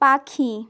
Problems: constant background noise